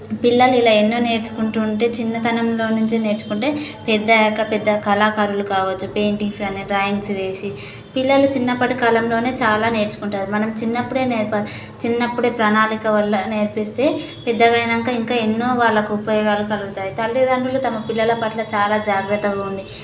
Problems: constant background noise